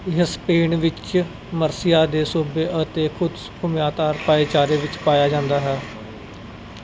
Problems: none marked